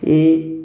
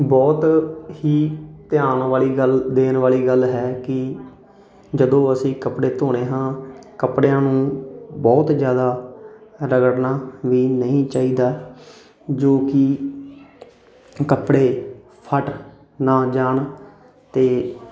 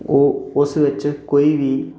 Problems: continuous background conversations